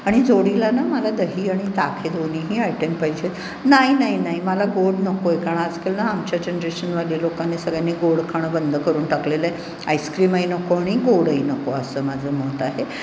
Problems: constant background noise, background conversations at intervals, echo